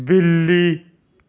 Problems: none marked